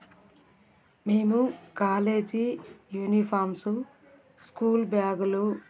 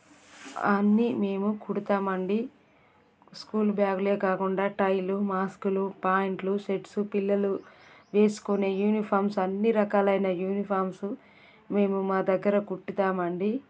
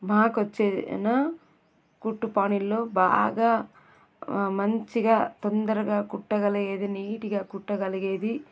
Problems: background sounds at intervals